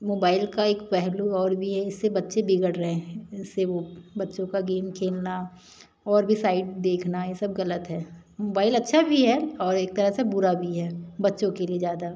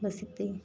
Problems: none marked